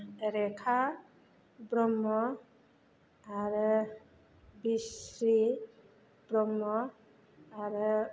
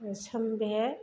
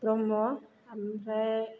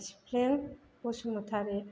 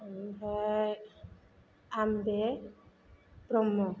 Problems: low volume